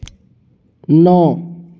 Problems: constant background noise